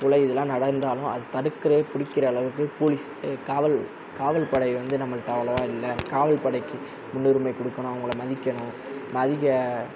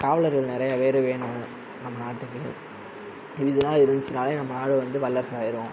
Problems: constant background noise